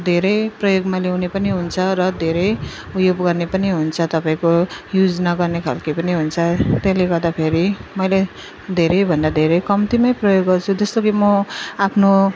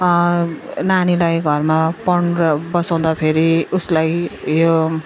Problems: none marked